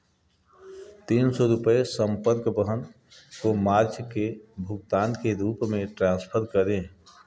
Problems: none marked